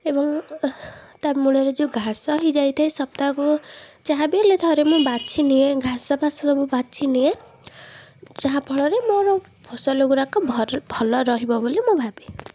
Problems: background sounds at intervals